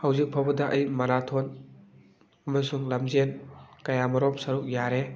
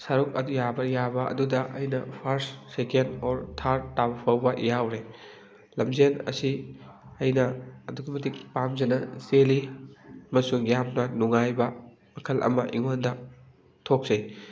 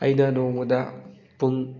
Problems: background conversations at intervals